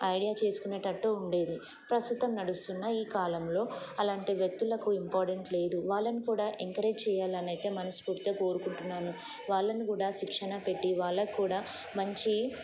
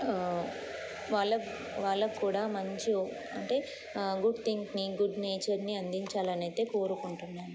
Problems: none marked